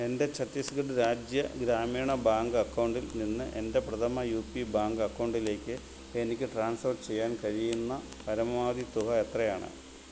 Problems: none marked